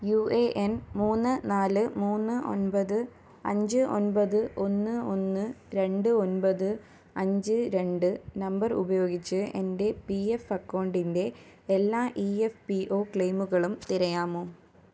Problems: low volume